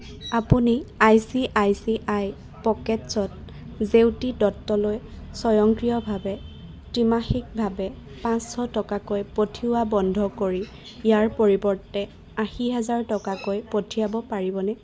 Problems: constant background noise